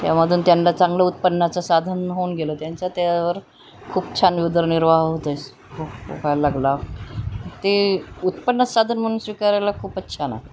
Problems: none marked